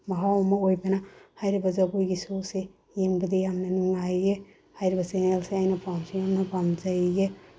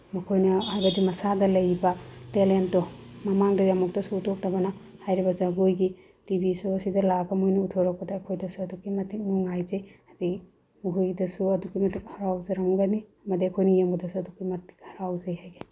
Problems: low volume